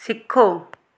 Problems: none marked